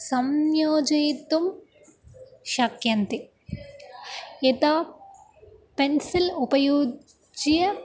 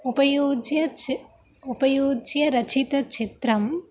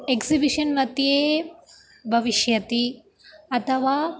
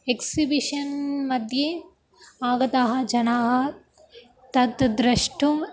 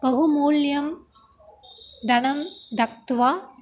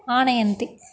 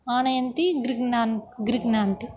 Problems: constant background noise